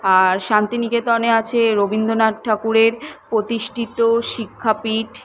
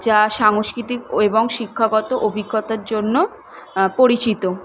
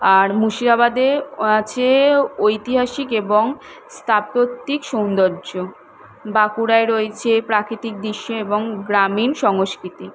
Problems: none marked